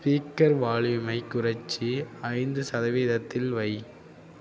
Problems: none marked